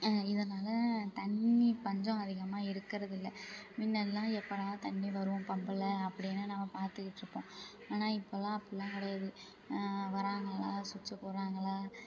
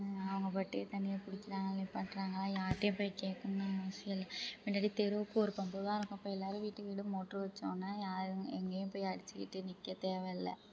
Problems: constant background noise, low volume